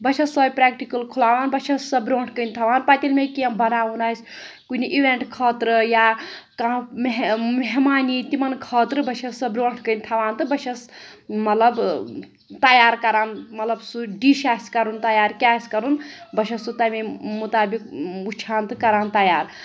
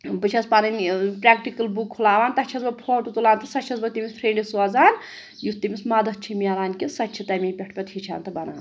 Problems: none marked